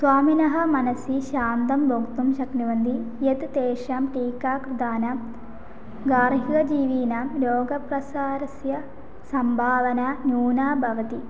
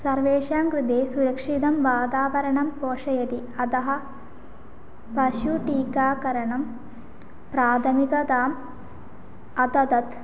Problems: none marked